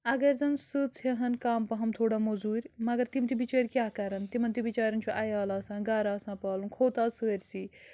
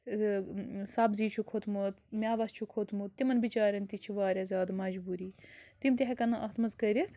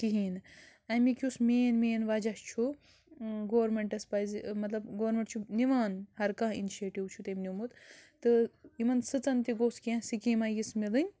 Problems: background sounds at intervals, low volume